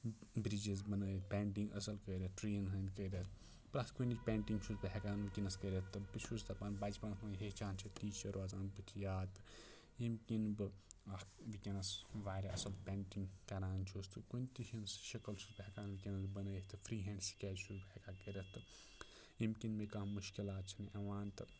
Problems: low volume